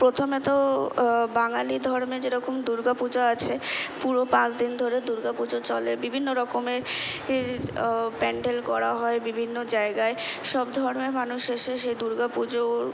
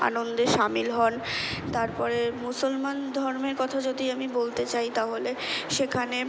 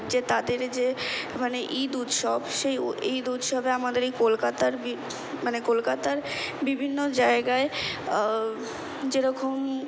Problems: constant background noise